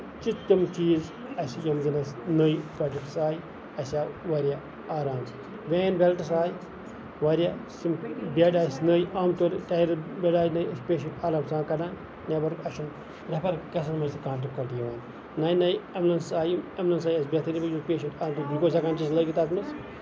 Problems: constant background noise, background conversations at intervals